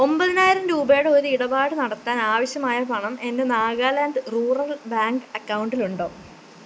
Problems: constant background noise